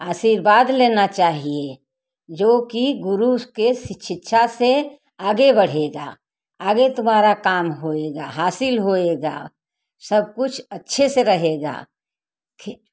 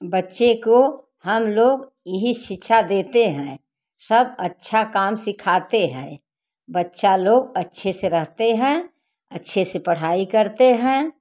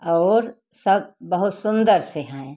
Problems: background sounds at intervals